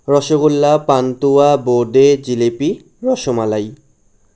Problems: none marked